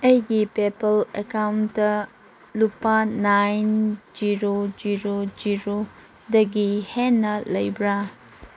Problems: constant background noise